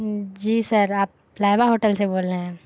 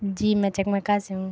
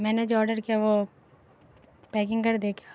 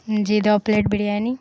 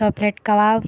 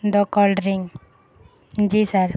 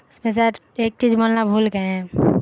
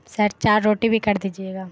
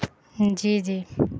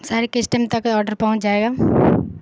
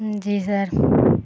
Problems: constant background noise